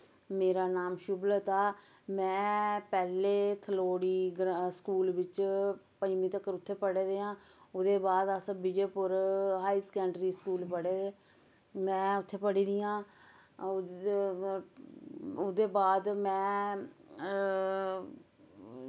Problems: background sounds at intervals, background conversations at intervals